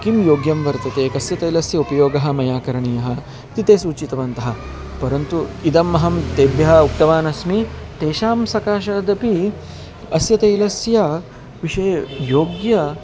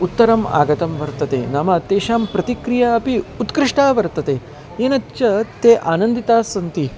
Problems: constant background noise, continuous background conversations